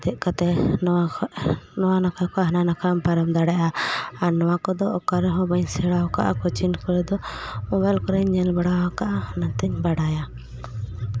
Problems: constant background noise